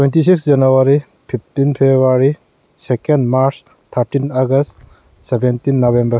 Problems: none marked